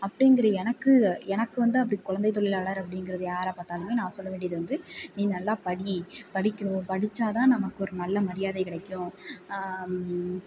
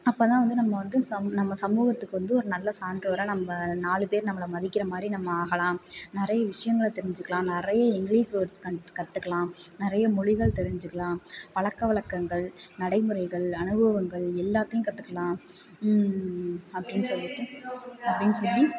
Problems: background conversations at intervals